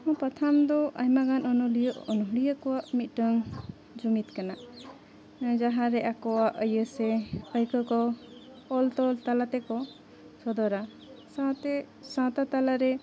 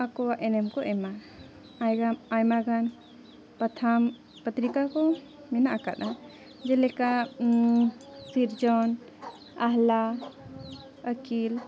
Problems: continuous background conversations